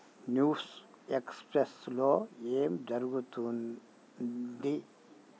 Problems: low volume